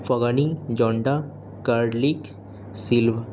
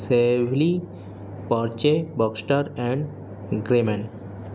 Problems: constant background noise